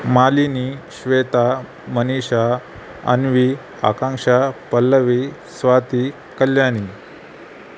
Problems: constant background noise